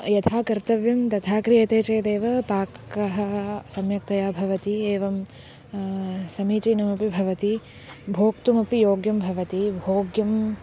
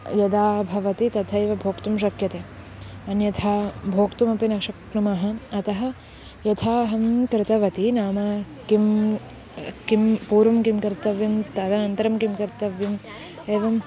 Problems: constant background noise